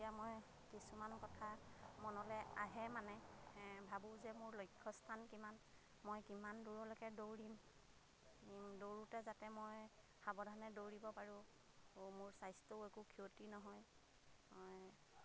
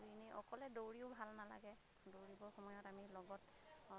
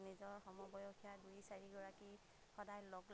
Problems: constant background noise, background conversations at intervals